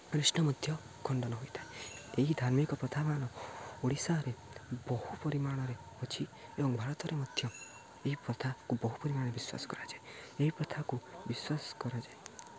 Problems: low volume